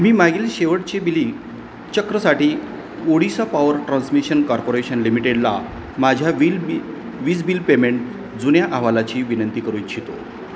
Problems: constant background noise